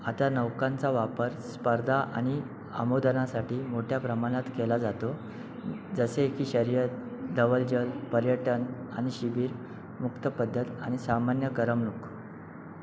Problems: background sounds at intervals